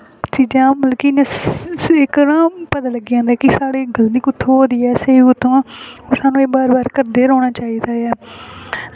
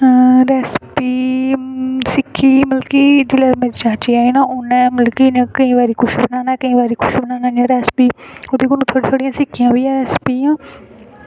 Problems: constant background noise